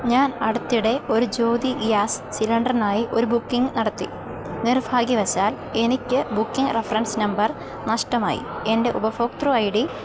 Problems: constant background noise